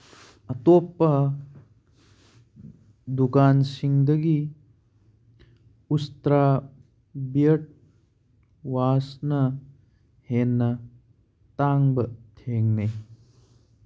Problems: none marked